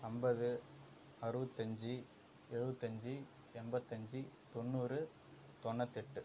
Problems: low volume